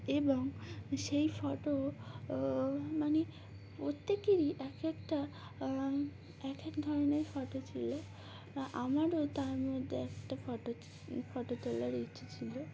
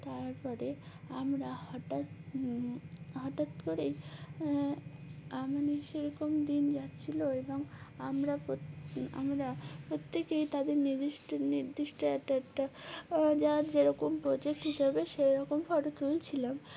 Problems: none marked